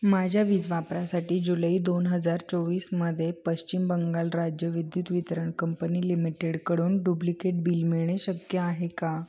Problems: constant background noise, background conversations at intervals